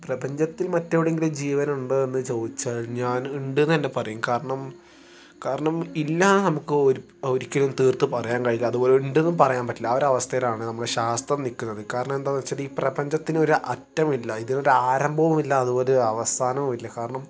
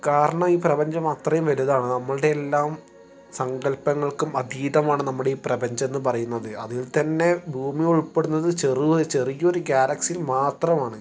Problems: background sounds at intervals